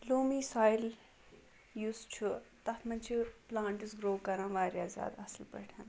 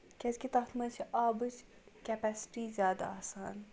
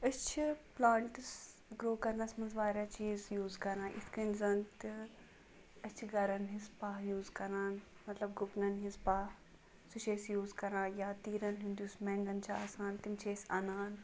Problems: none marked